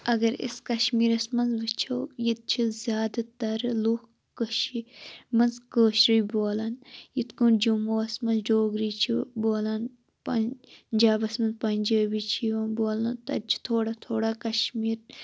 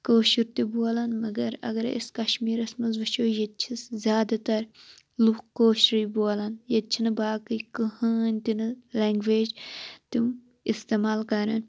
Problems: background sounds at intervals